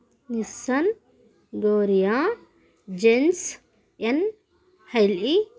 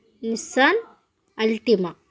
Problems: none marked